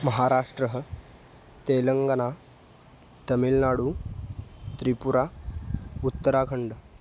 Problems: none marked